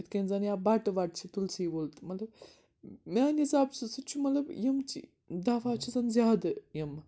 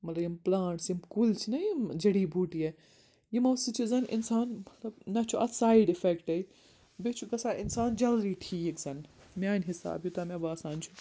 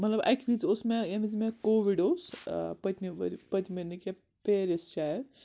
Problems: background sounds at intervals